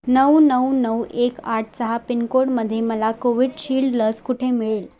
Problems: constant background noise, background conversations at intervals